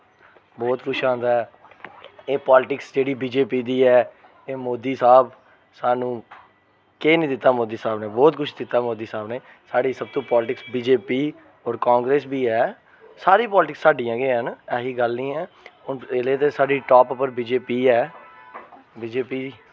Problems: none marked